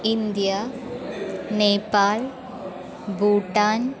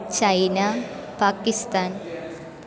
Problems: constant background noise